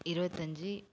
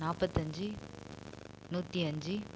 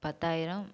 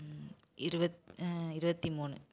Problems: constant background noise